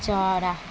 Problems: background sounds at intervals